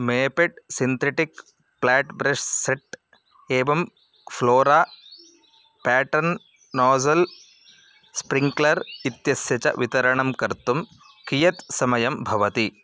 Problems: none marked